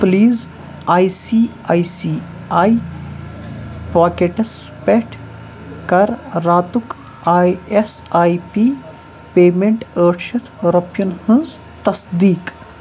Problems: constant background noise